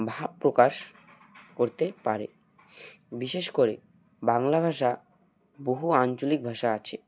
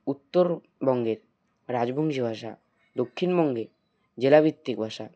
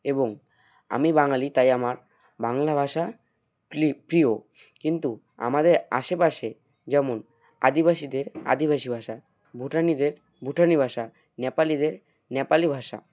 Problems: background sounds at intervals